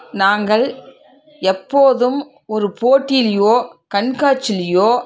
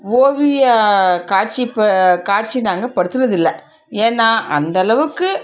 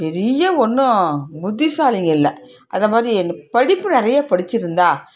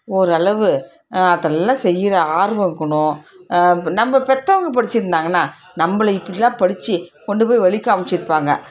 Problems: background sounds at intervals, background conversations at intervals